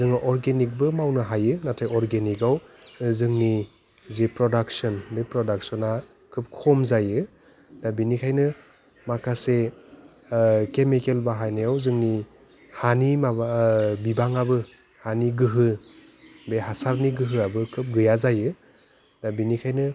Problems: constant background noise